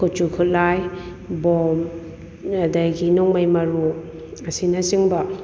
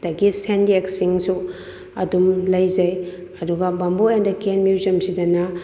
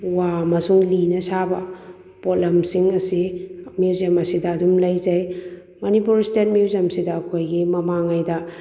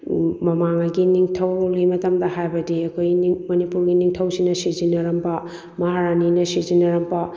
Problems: none marked